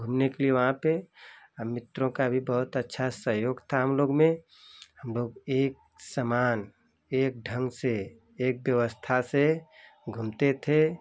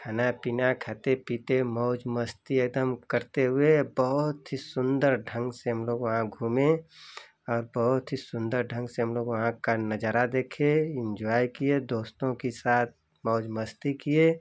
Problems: constant background noise